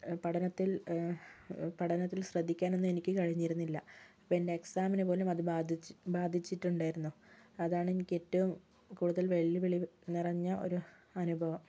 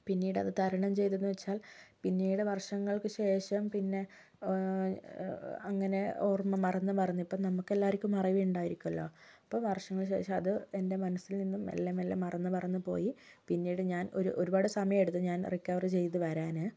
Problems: low volume